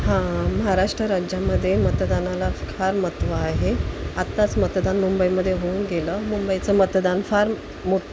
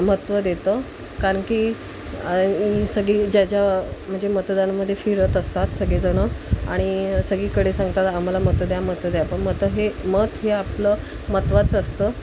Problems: constant background noise